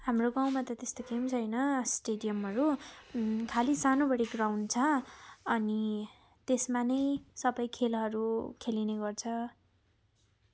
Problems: none marked